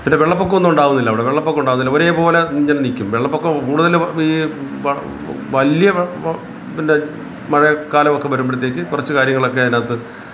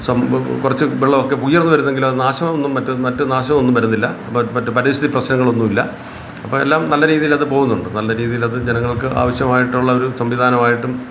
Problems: constant background noise